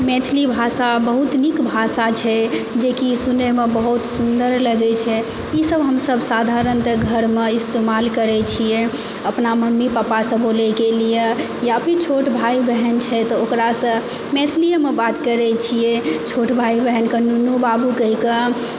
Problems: constant background noise